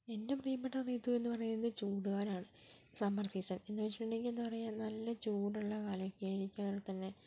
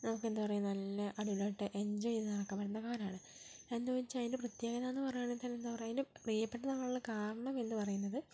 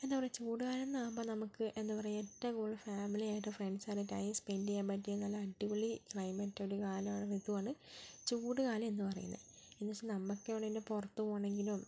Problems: low volume